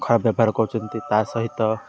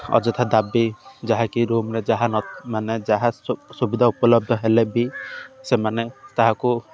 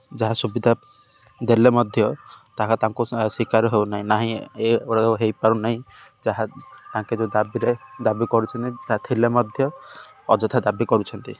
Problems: constant background noise